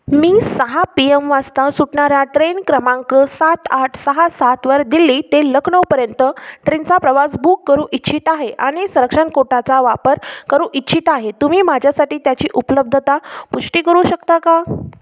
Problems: constant background noise